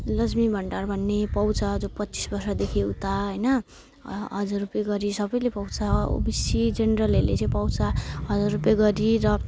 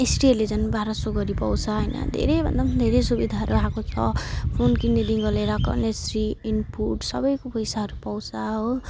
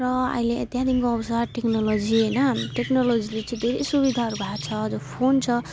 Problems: none marked